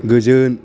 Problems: constant background noise